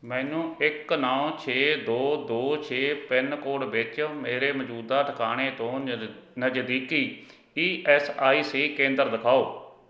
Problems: background conversations at intervals